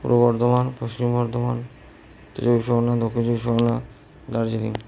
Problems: low volume